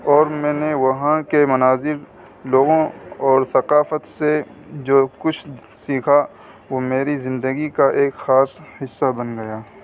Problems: constant background noise